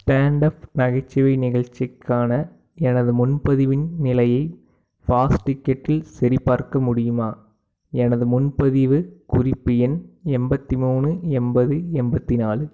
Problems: background sounds at intervals